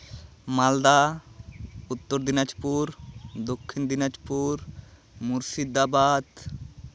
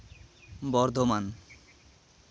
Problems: constant background noise